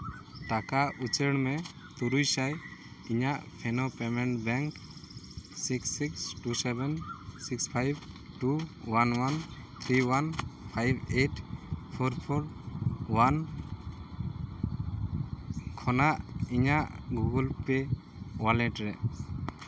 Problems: constant background noise